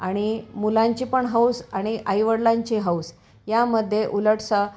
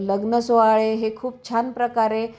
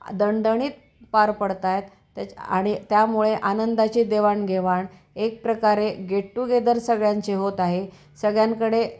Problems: background sounds at intervals